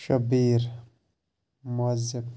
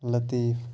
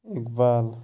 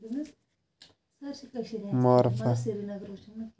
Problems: background conversations at intervals